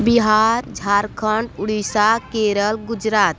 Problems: none marked